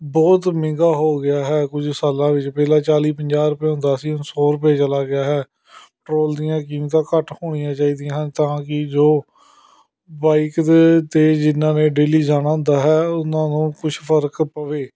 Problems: background conversations at intervals